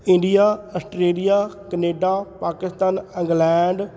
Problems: background conversations at intervals